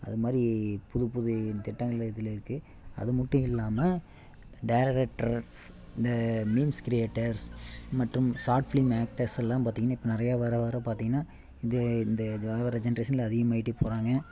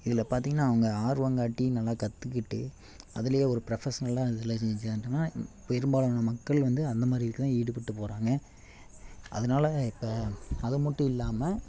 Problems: none marked